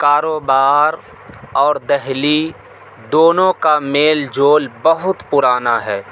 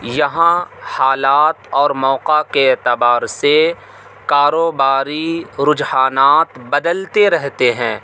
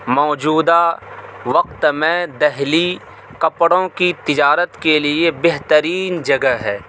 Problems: constant background noise